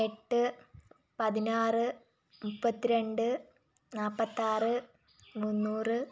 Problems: low volume